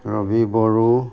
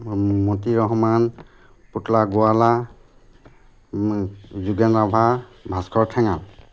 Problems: constant background noise